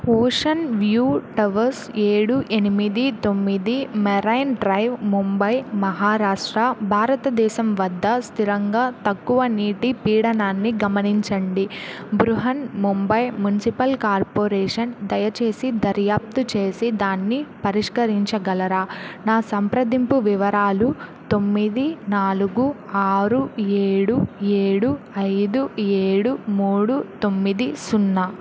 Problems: none marked